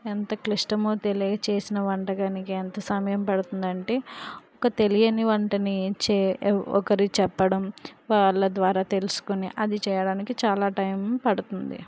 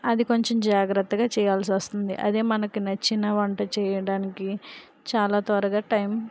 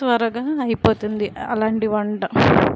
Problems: background sounds at intervals